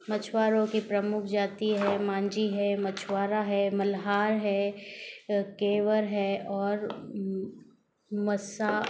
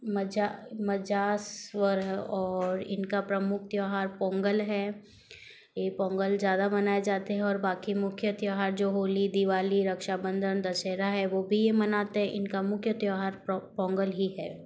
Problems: background sounds at intervals